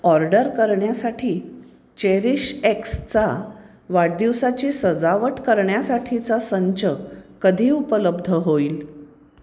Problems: constant background noise